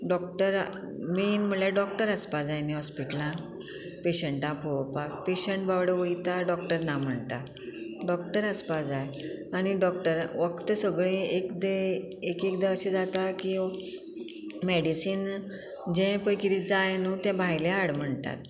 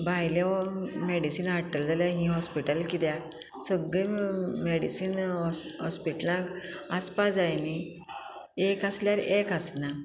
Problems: constant background noise